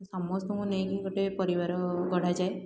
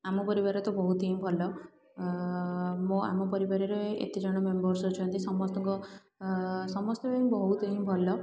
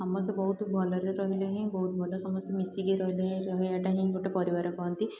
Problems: low volume